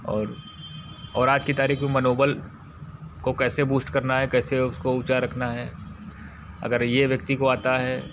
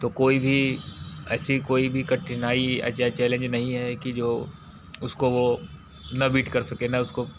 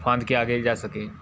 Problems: constant background noise